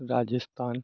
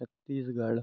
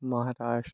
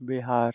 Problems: background sounds at intervals